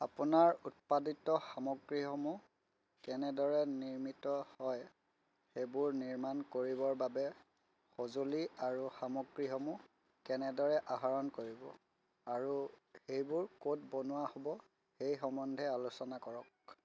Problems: background sounds at intervals, low volume